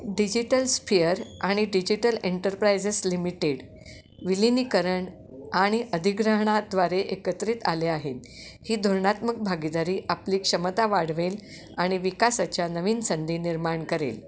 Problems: constant background noise